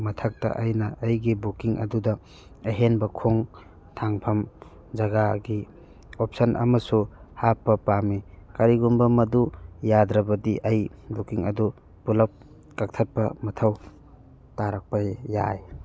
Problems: background conversations at intervals